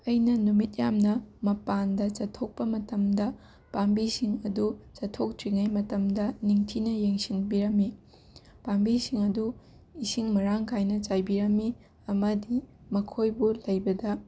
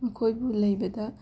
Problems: constant background noise